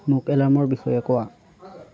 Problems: continuous background conversations